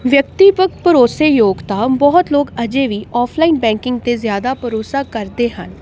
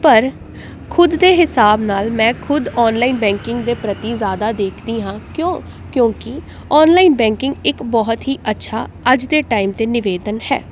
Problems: none marked